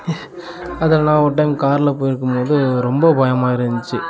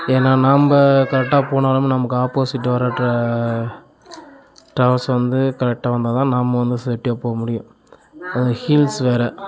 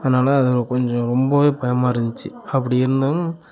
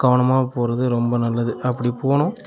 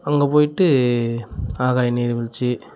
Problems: continuous background conversations